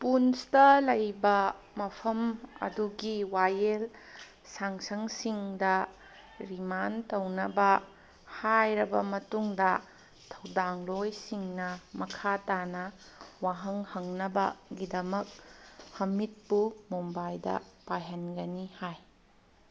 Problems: background sounds at intervals